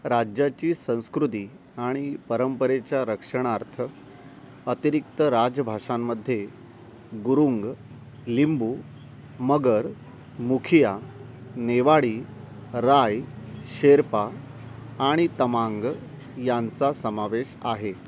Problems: none marked